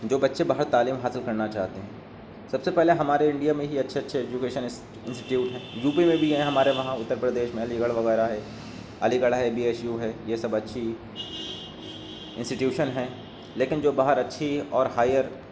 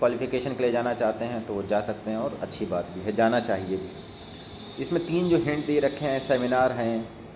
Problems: constant background noise